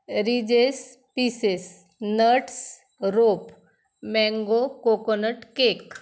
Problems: constant background noise